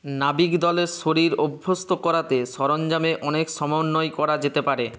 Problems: constant background noise